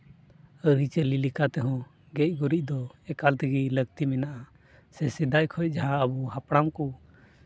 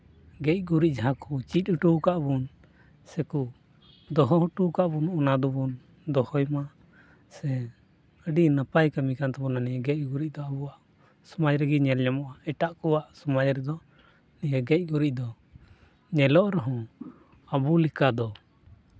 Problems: none marked